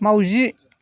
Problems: constant background noise